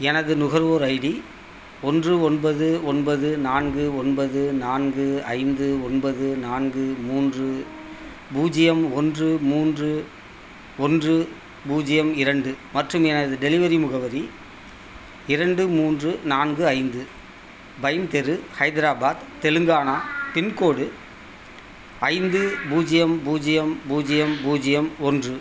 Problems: constant background noise, background conversations at intervals